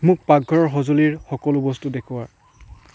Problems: background sounds at intervals